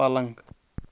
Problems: background sounds at intervals